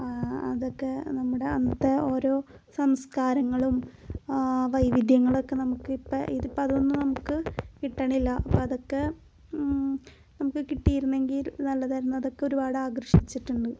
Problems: background sounds at intervals, low volume